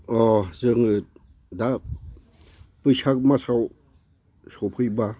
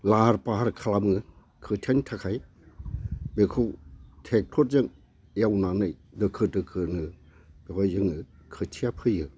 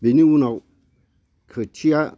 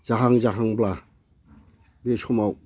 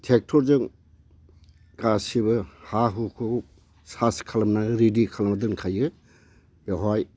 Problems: constant background noise